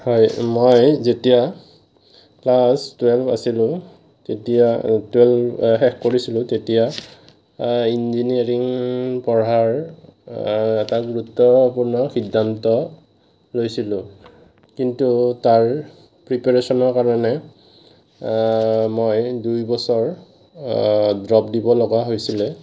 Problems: none marked